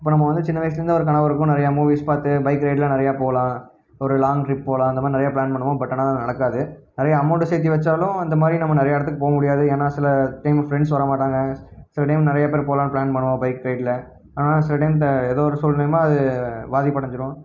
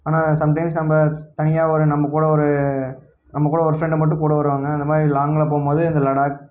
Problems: none marked